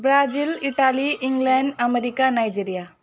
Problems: none marked